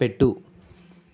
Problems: none marked